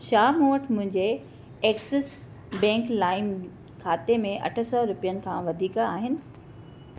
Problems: none marked